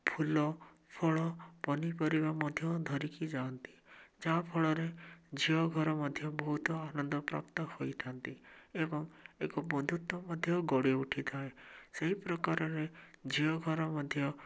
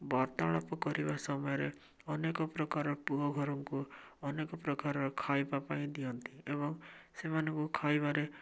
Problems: none marked